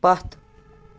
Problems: background sounds at intervals